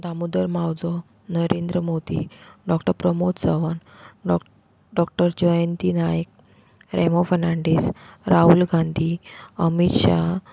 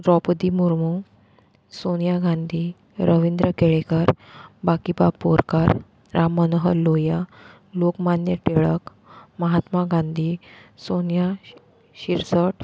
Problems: constant background noise